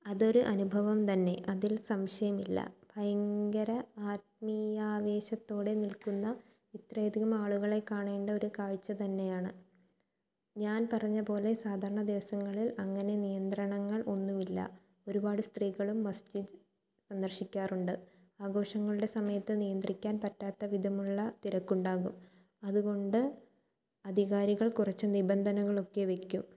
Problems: low volume